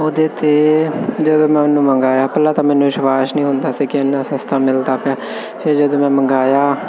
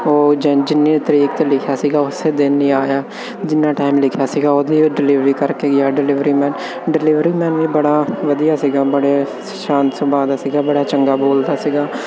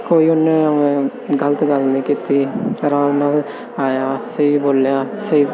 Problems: none marked